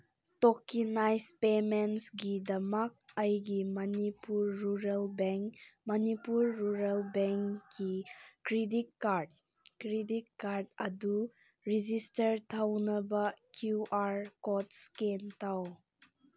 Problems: none marked